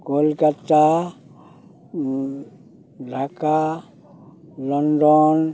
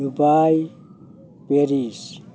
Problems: constant background noise